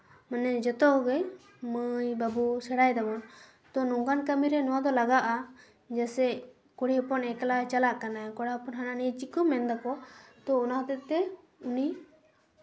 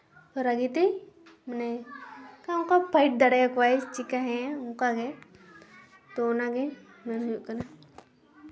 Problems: background sounds at intervals, background conversations at intervals